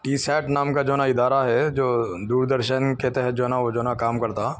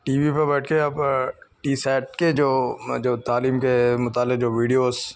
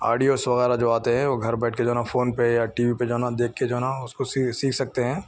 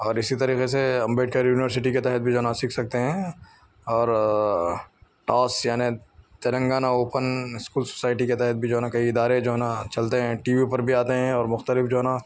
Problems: none marked